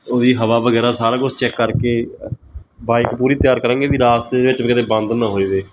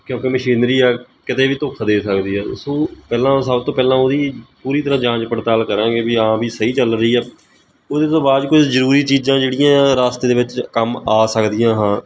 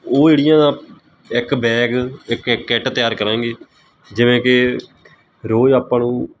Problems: background sounds at intervals